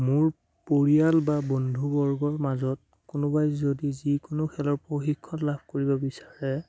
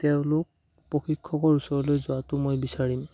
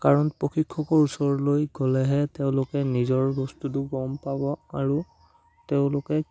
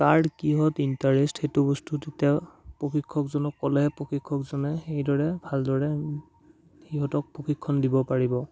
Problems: none marked